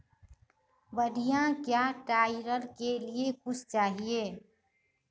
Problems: none marked